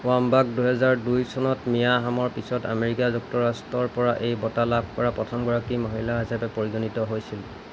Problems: constant background noise